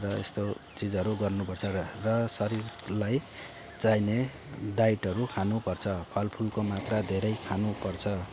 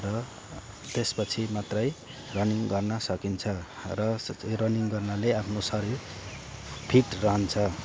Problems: constant background noise